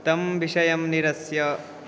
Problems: none marked